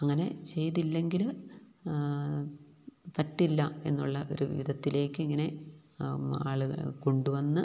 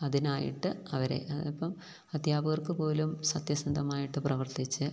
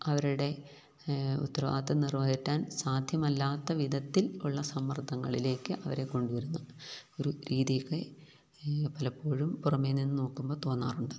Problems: none marked